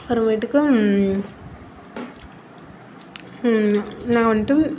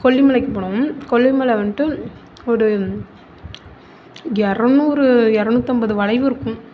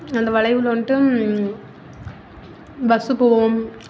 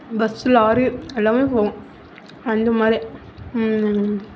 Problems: constant background noise